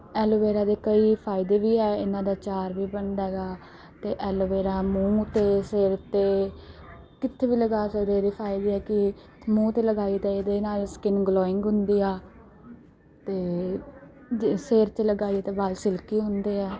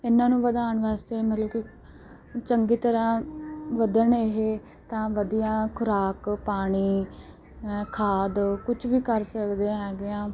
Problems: background sounds at intervals, background conversations at intervals